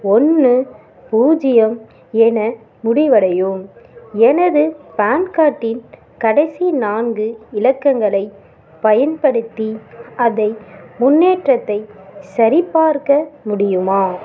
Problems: background sounds at intervals, background conversations at intervals